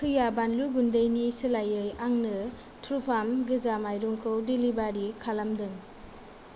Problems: none marked